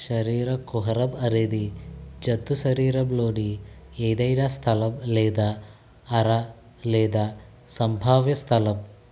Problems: constant background noise